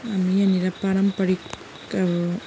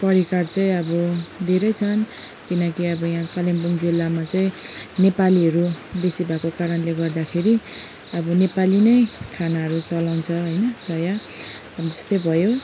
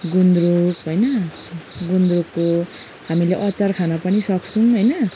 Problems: background sounds at intervals